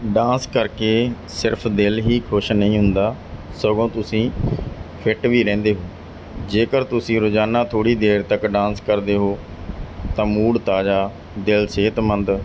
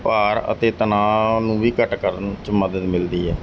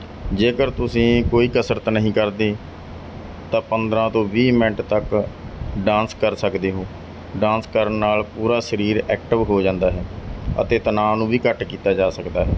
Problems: background conversations at intervals